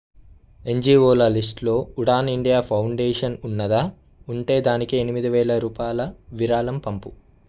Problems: none marked